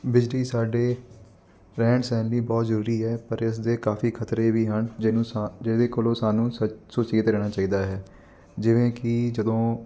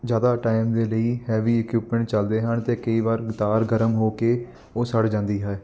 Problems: constant background noise